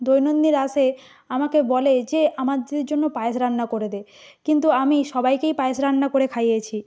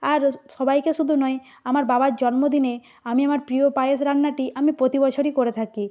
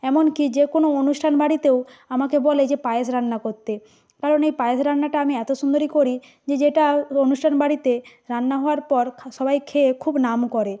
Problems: background sounds at intervals